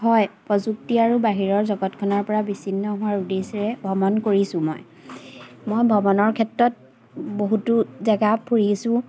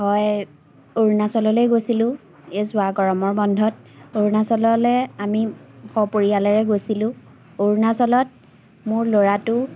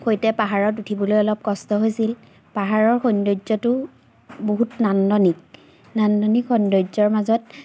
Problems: none marked